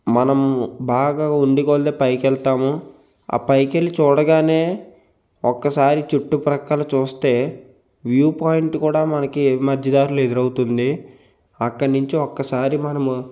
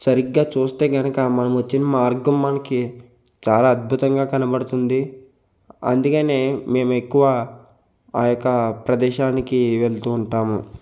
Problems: constant background noise